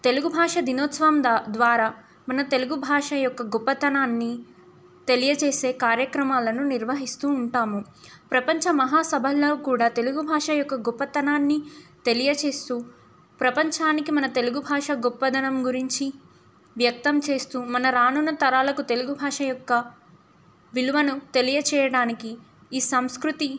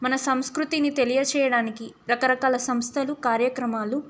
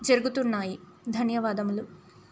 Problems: none marked